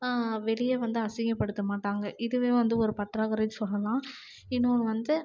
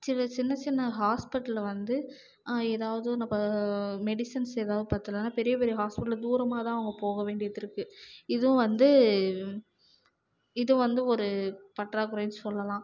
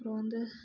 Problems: low volume